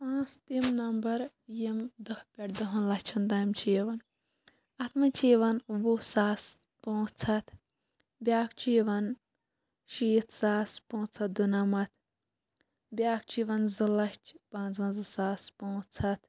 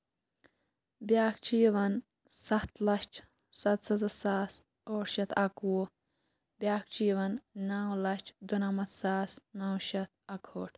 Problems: none marked